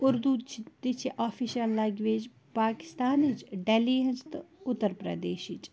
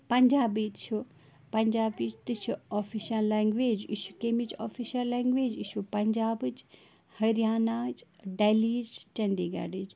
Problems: constant background noise, background conversations at intervals